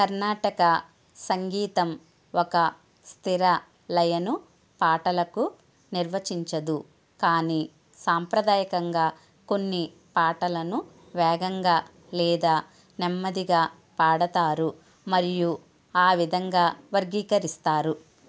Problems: none marked